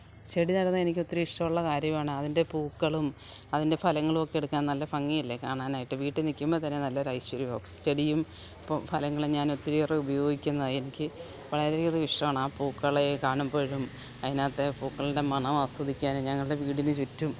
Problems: constant background noise, low volume